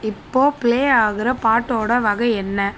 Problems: constant background noise